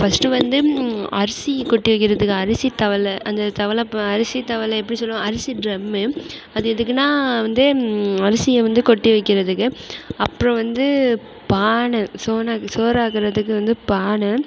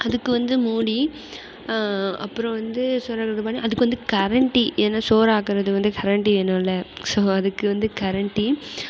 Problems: constant background noise